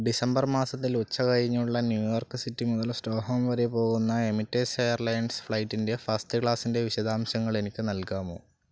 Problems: low volume